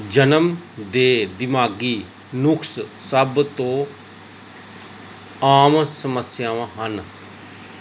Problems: none marked